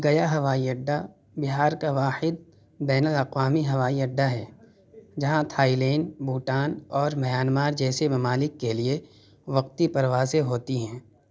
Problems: background conversations at intervals